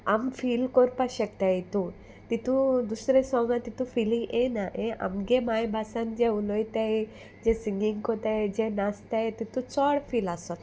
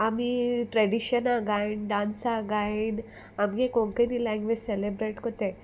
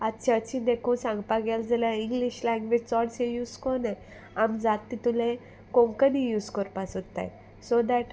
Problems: constant background noise